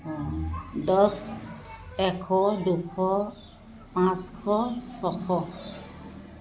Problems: background sounds at intervals, continuous background conversations